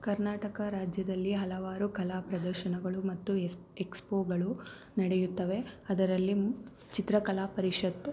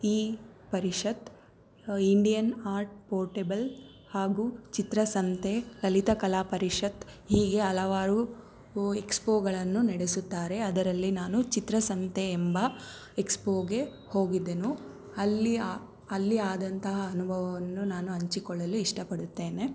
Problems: background sounds at intervals